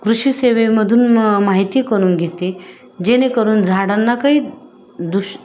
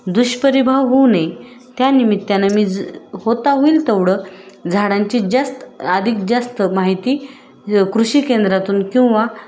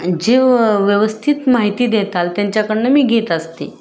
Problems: constant background noise, background conversations at intervals